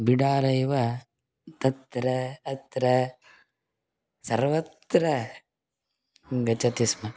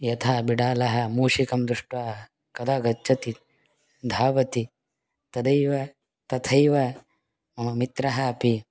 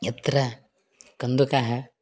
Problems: background sounds at intervals